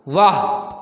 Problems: continuous background conversations